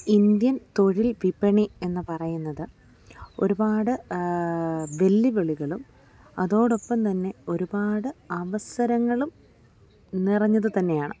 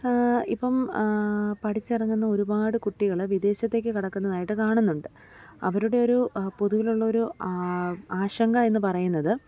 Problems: none marked